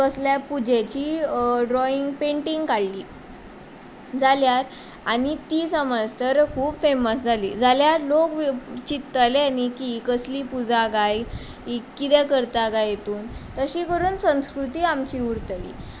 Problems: constant background noise